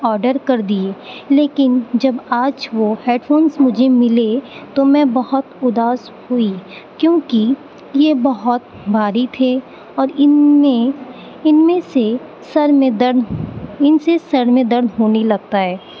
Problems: constant background noise